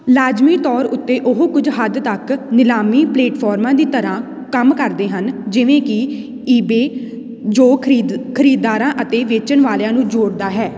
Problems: background sounds at intervals, background conversations at intervals